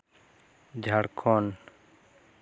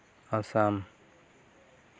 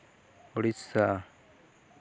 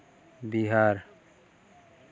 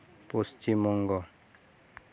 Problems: none marked